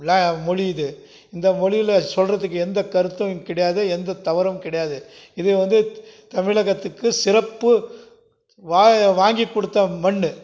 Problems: none marked